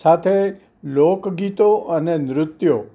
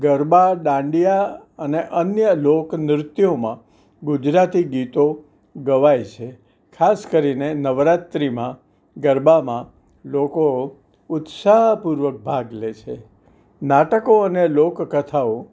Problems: none marked